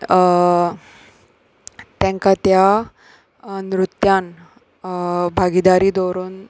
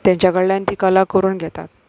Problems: background sounds at intervals